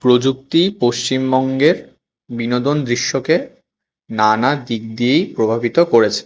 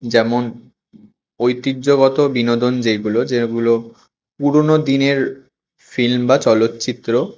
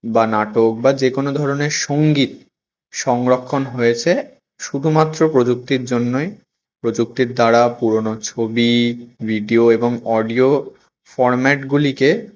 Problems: constant background noise